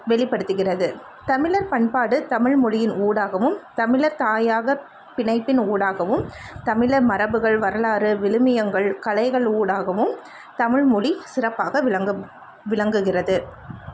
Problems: constant background noise